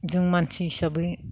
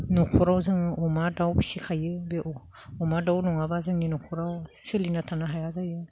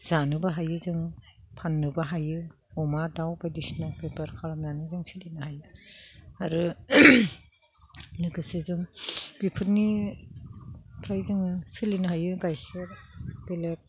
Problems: none marked